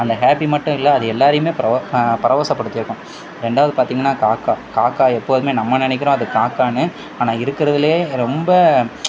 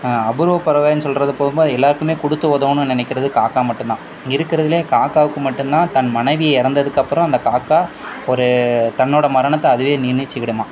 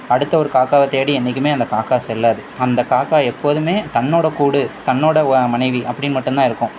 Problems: constant background noise